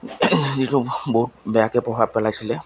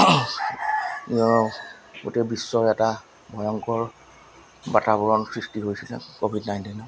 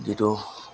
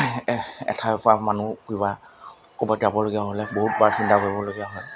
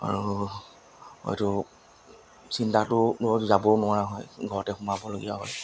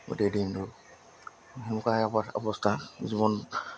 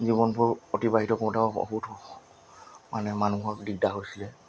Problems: background sounds at intervals